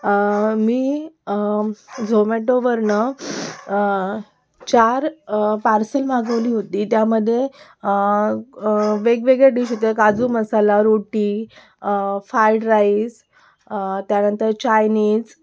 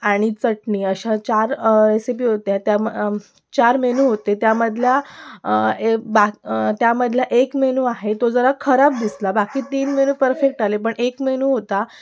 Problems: background sounds at intervals, background conversations at intervals